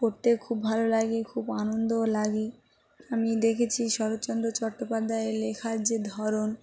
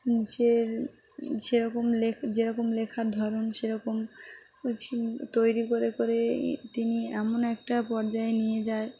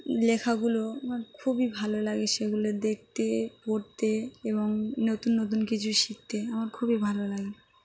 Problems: none marked